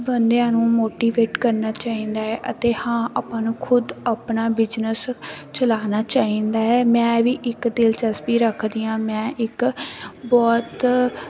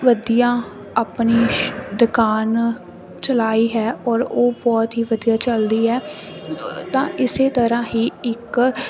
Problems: none marked